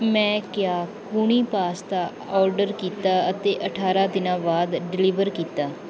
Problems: background sounds at intervals